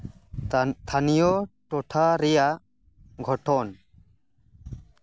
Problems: none marked